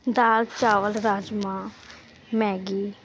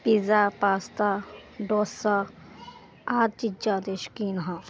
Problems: background sounds at intervals